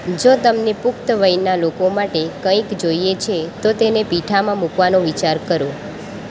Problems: constant background noise